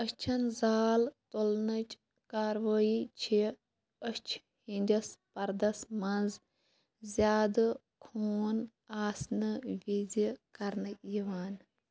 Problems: constant background noise